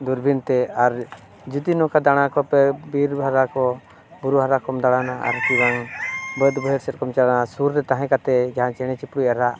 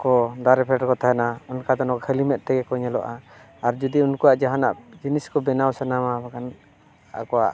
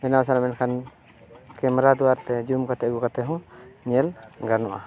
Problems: none marked